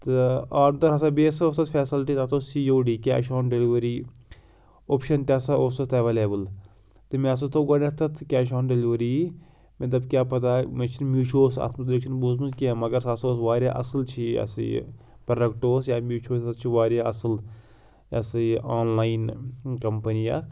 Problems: background sounds at intervals